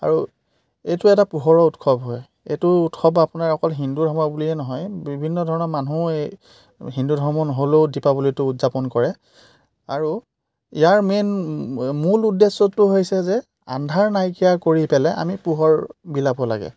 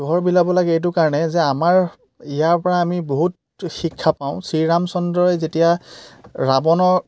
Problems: none marked